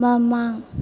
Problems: none marked